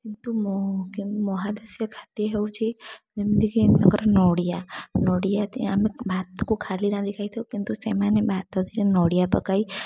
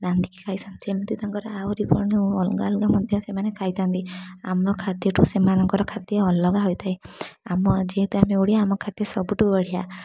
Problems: constant background noise, background conversations at intervals